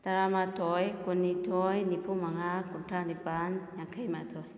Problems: background conversations at intervals